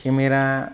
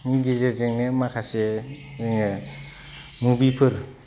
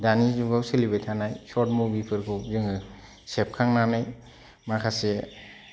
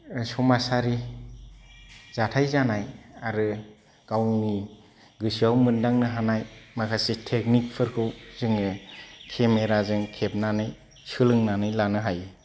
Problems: low volume